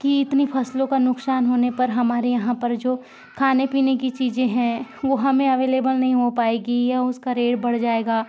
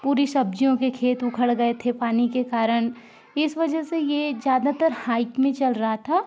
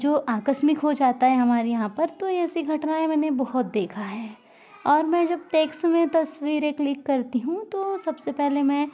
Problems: background sounds at intervals, continuous background conversations